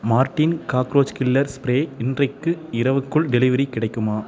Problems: background conversations at intervals